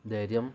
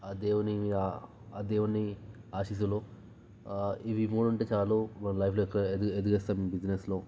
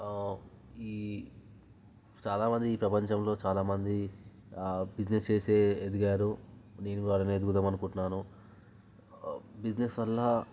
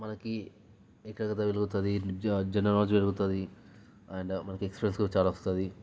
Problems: low volume